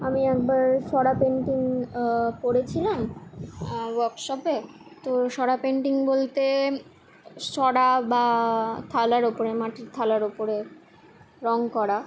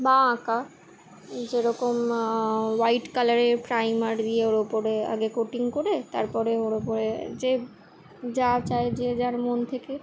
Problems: constant background noise